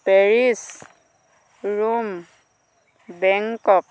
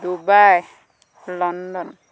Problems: constant background noise